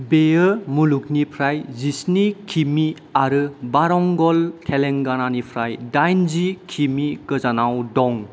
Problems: none marked